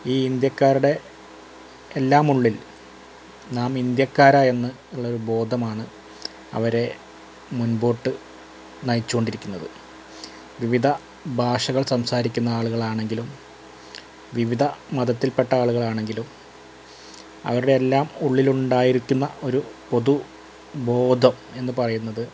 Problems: constant background noise